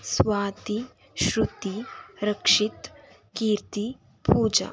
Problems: none marked